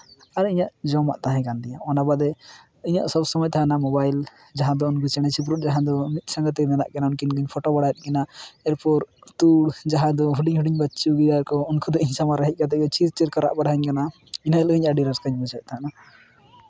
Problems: constant background noise, background conversations at intervals